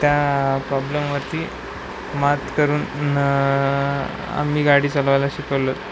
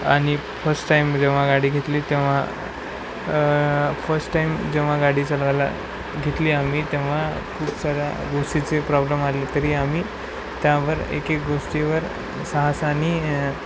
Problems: constant background noise